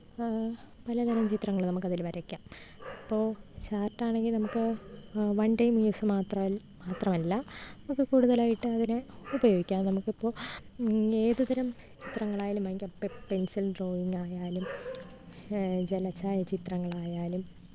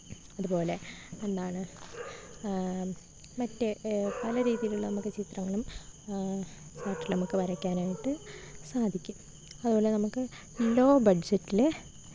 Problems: background sounds at intervals